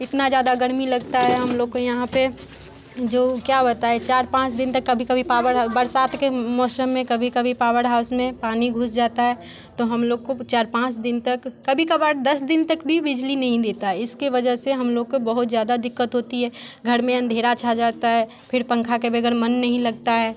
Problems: constant background noise, continuous background conversations